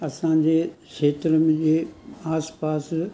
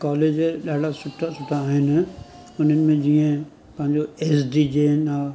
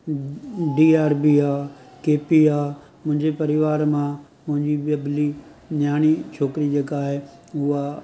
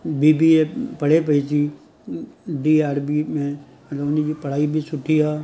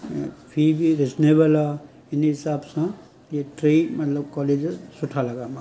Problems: constant background noise